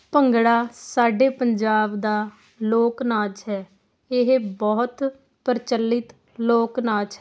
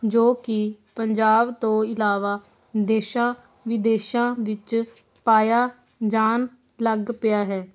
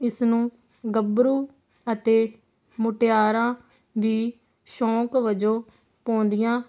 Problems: constant background noise